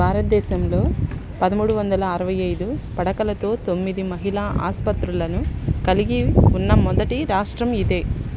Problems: constant background noise, background conversations at intervals